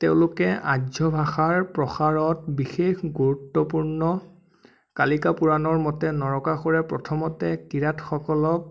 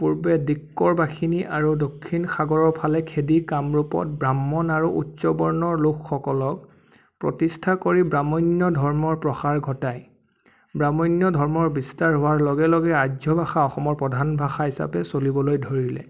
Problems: none marked